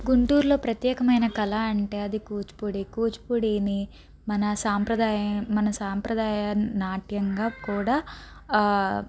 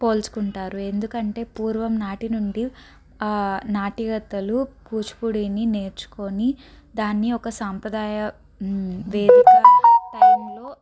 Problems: background sounds at intervals, background conversations at intervals